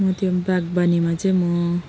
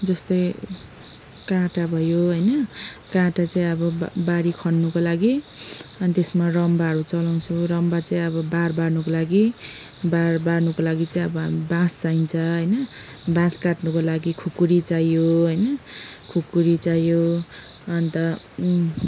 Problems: background sounds at intervals, background conversations at intervals